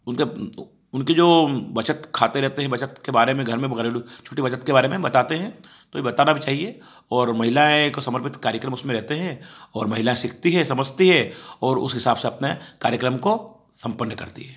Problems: background sounds at intervals